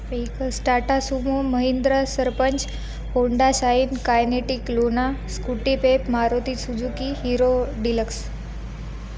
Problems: constant background noise, background conversations at intervals